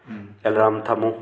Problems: background sounds at intervals, background conversations at intervals